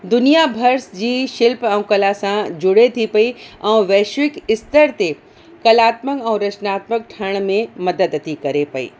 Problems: constant background noise, echo